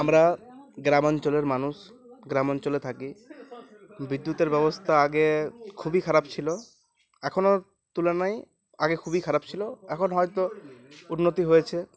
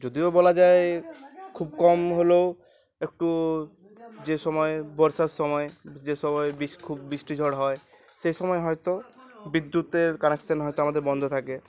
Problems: constant background noise, continuous background conversations